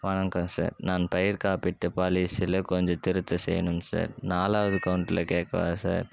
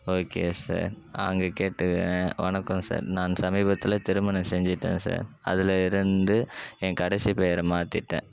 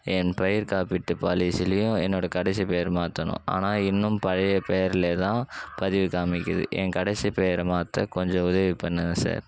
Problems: background sounds at intervals